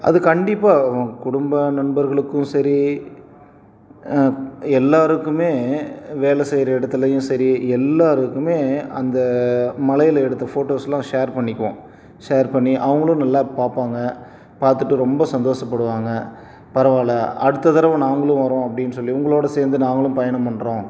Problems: background conversations at intervals